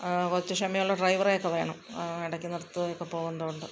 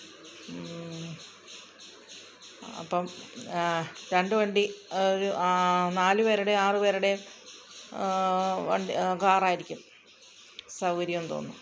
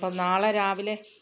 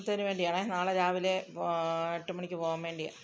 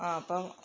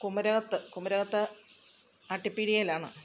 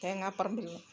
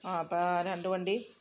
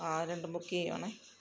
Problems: background sounds at intervals